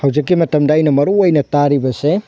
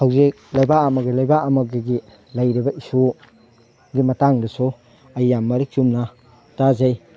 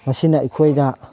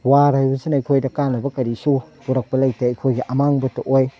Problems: background sounds at intervals